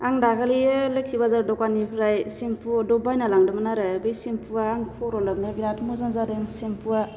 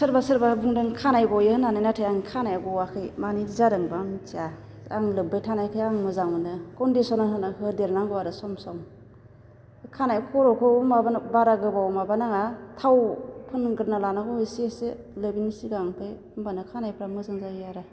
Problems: none marked